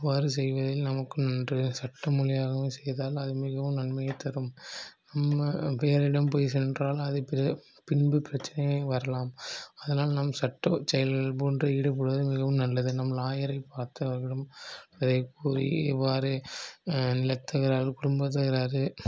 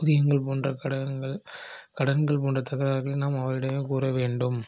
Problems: none marked